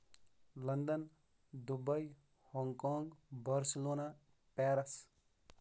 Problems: none marked